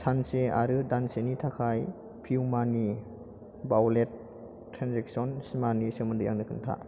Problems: constant background noise